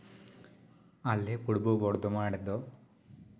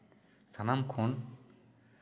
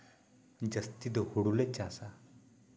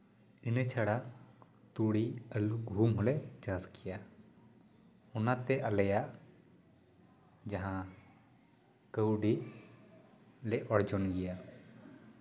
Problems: none marked